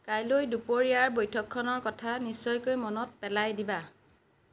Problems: none marked